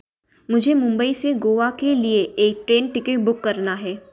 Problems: background conversations at intervals